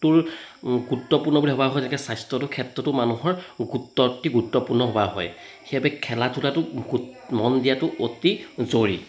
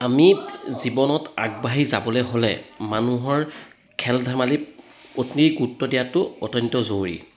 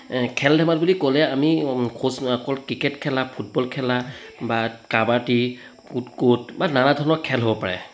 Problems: background conversations at intervals